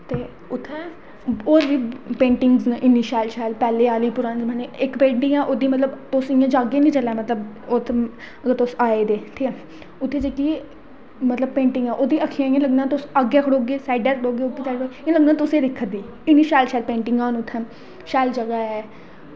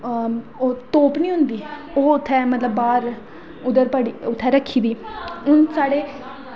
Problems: background sounds at intervals, echo